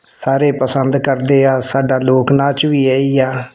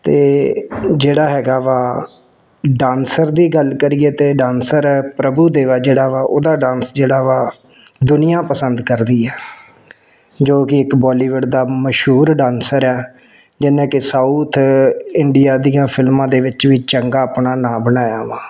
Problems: background sounds at intervals